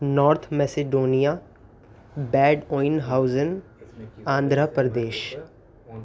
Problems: constant background noise